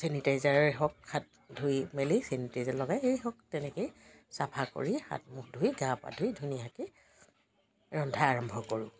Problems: constant background noise, background conversations at intervals